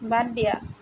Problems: constant background noise